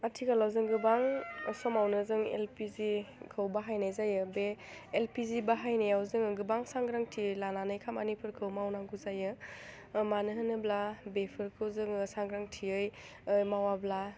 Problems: low volume